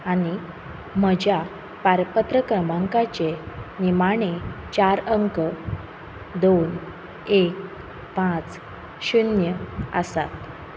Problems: constant background noise